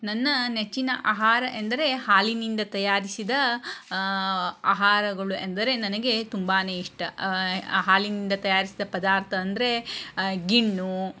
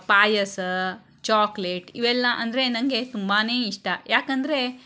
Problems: none marked